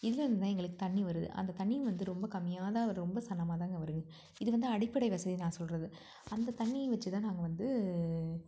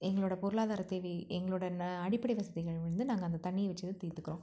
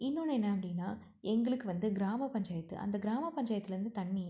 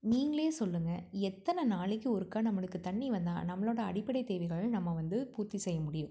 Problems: low volume